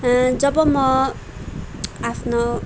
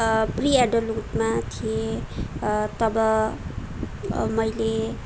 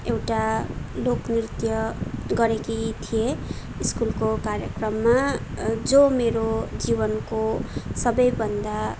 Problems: background sounds at intervals